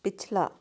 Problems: constant background noise